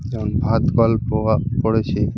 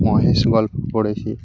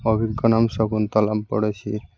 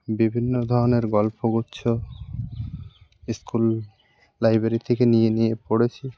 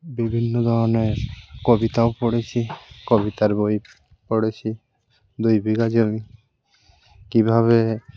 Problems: constant background noise